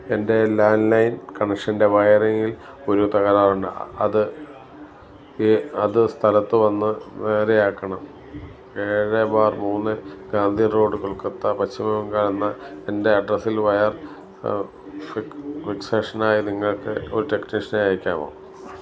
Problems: none marked